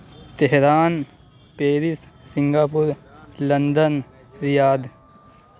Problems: constant background noise